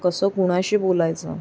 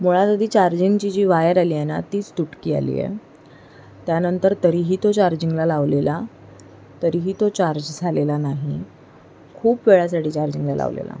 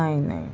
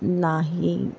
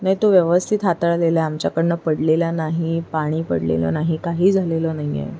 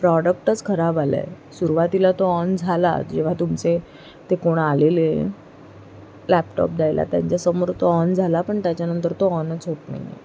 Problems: constant background noise